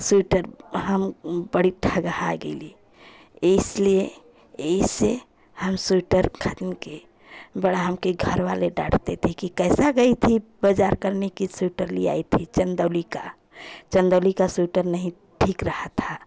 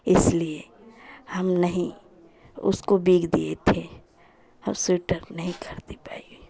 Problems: constant background noise, continuous background conversations